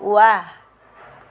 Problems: constant background noise